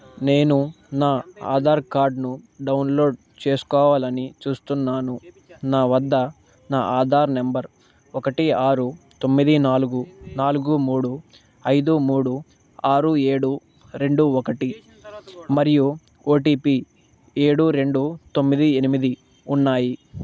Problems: none marked